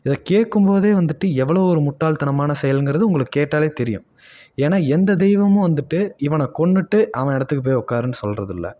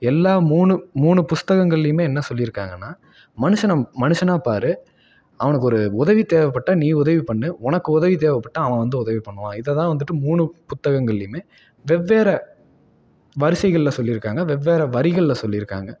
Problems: none marked